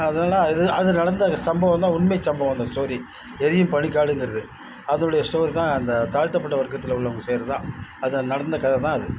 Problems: background sounds at intervals